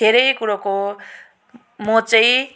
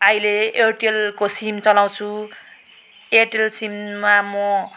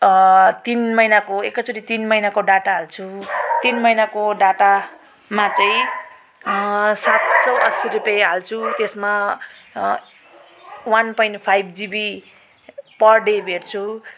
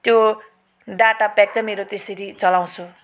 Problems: constant background noise